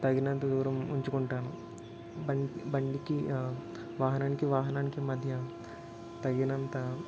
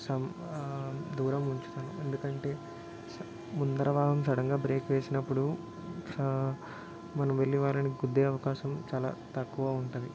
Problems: constant background noise